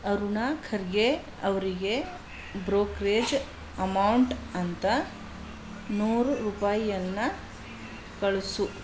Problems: none marked